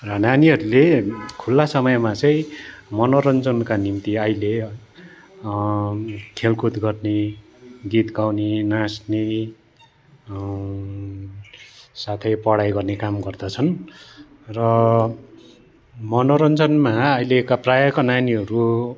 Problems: constant background noise